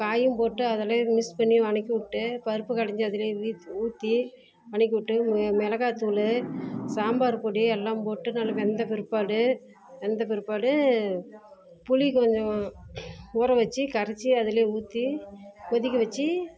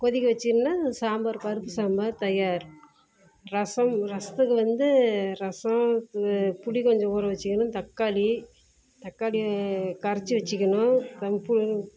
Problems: background sounds at intervals